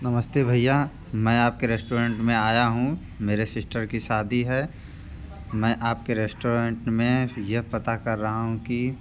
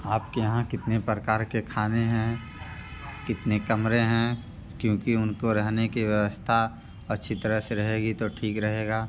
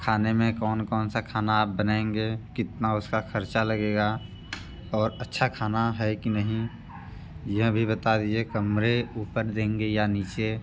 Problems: constant background noise, background conversations at intervals